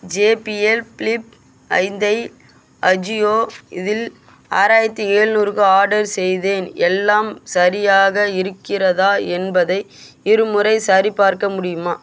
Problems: constant background noise